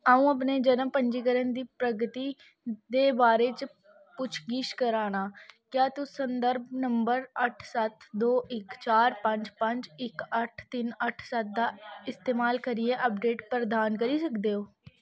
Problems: none marked